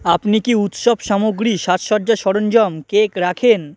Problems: constant background noise